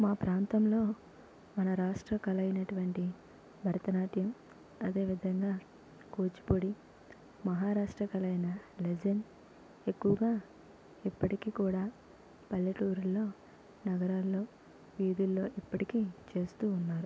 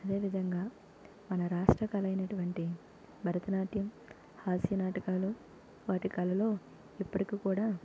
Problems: constant background noise, low volume